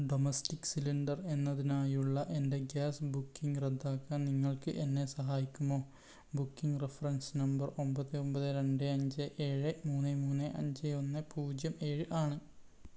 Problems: low volume